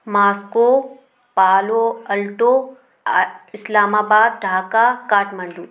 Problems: constant background noise, background conversations at intervals